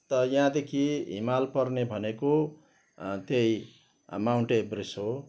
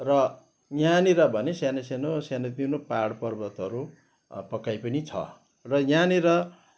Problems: background sounds at intervals